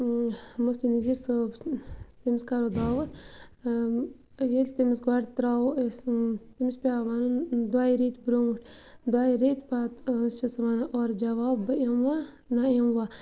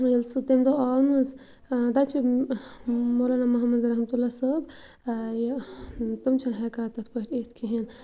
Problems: constant background noise